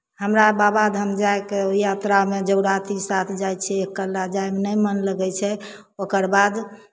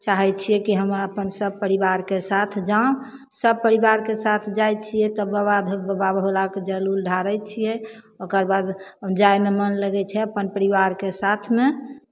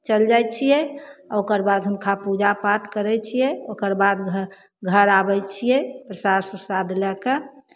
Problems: none marked